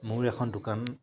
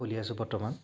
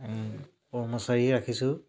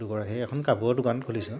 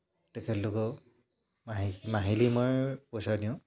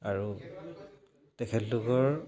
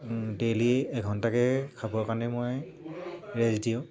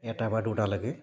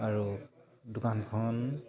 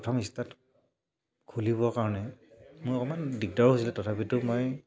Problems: low volume